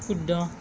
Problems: constant background noise